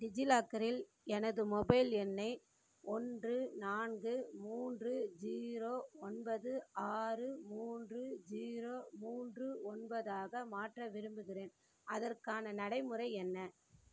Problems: none marked